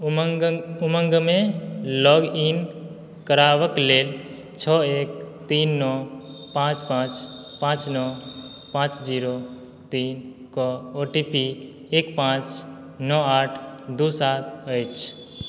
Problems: background sounds at intervals